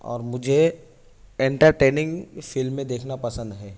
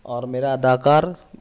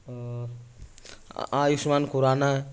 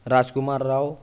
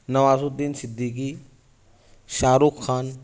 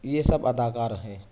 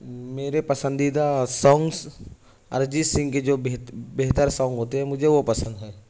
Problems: none marked